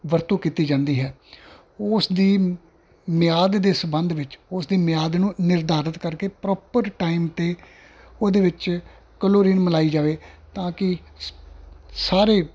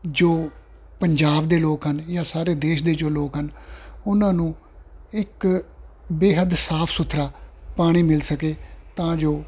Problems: background sounds at intervals